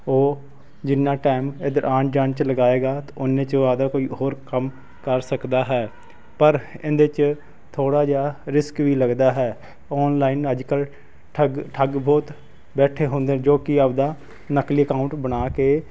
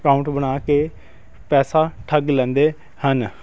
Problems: constant background noise